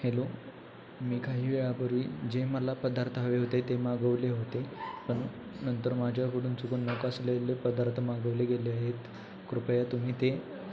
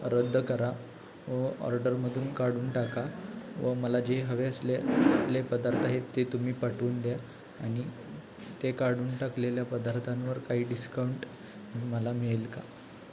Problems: constant background noise, background conversations at intervals